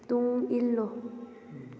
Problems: none marked